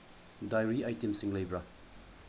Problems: low volume